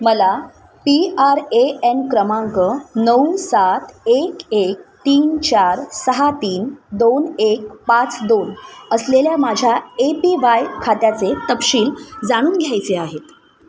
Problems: none marked